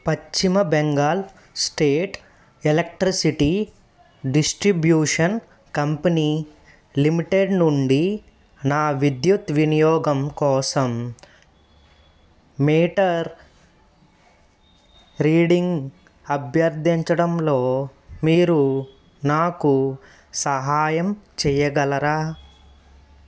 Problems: none marked